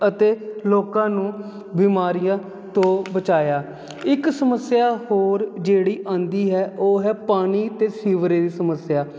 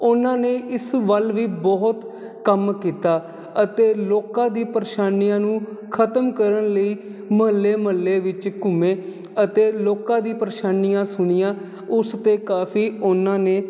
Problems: none marked